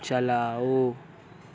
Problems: constant background noise